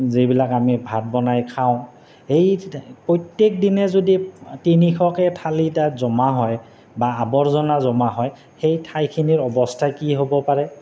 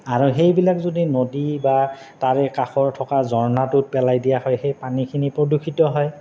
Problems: constant background noise